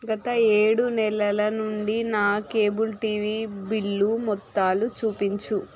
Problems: constant background noise, continuous background conversations